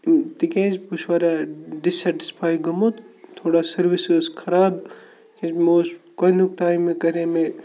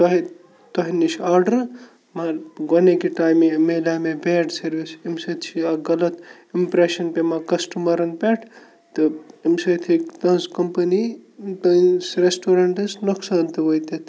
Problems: constant background noise